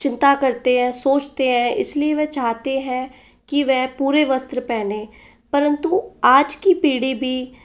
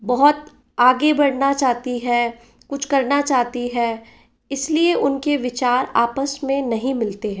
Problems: background sounds at intervals